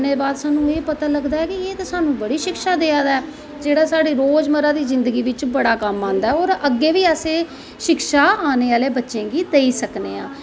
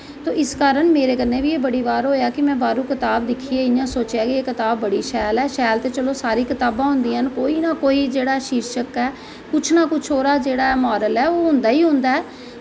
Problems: constant background noise